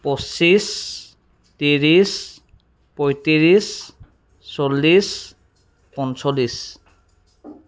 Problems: background sounds at intervals